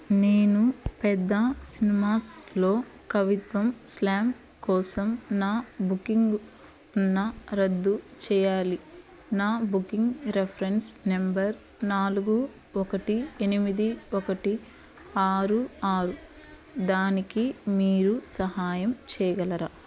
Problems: none marked